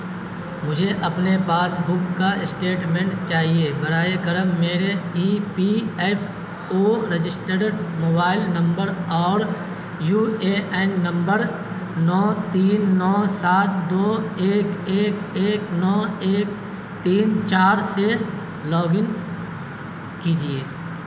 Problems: constant background noise